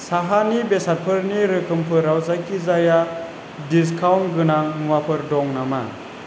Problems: constant background noise